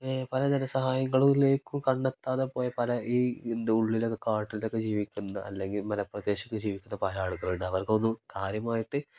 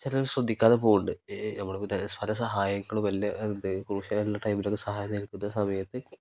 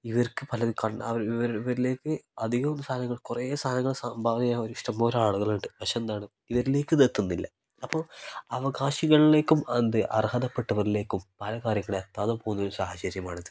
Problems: none marked